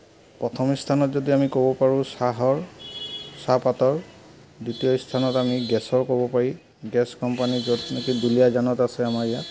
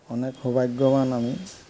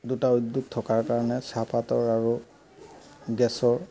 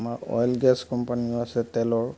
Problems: background sounds at intervals, background conversations at intervals